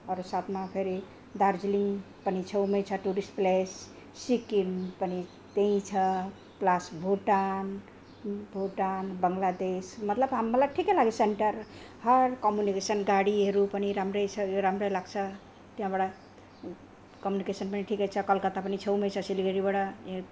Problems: none marked